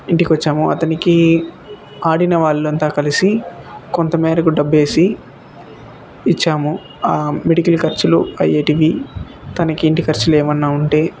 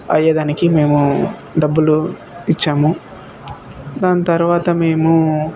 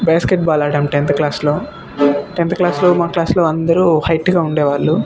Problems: constant background noise, background conversations at intervals